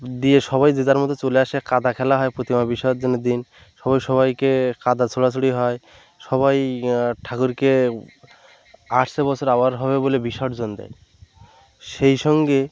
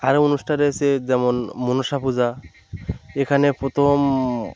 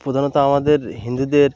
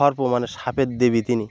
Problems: none marked